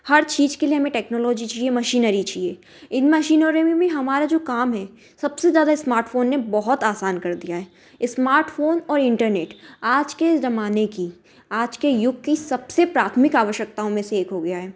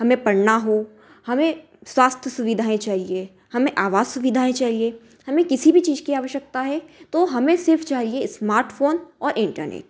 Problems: none marked